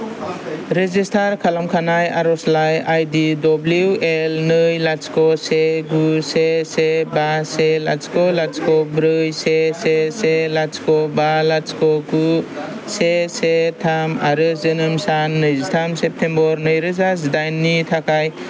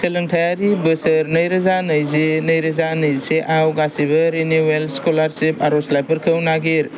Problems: none marked